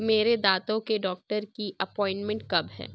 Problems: none marked